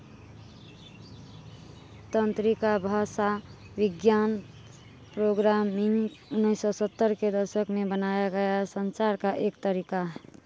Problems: none marked